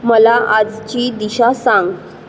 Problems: constant background noise